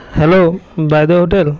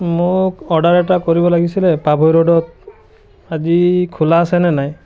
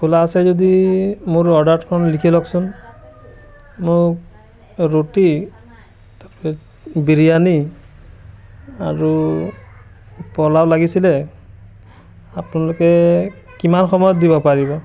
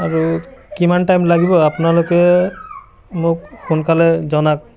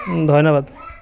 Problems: background sounds at intervals, continuous background conversations